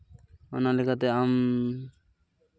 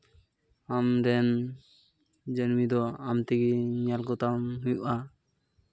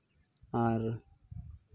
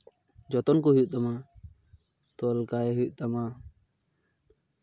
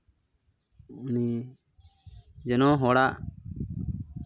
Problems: none marked